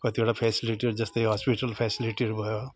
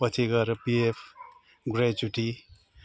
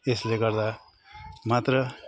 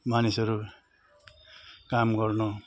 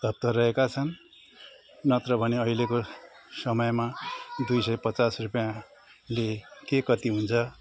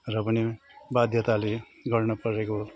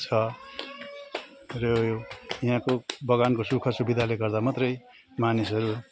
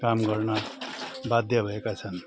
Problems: constant background noise